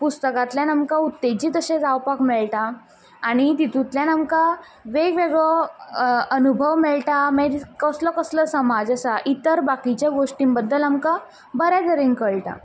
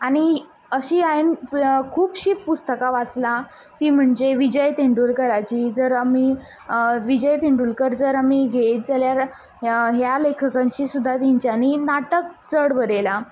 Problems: background sounds at intervals